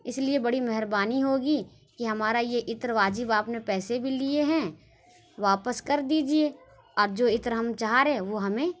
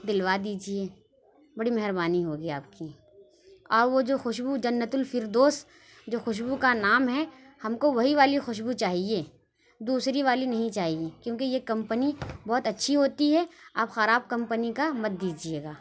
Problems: none marked